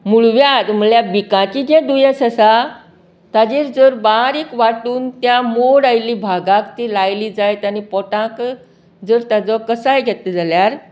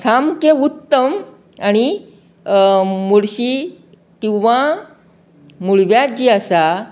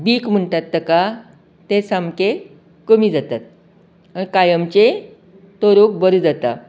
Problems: none marked